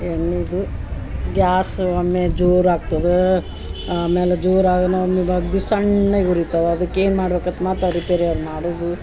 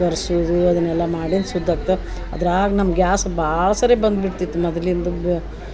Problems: background sounds at intervals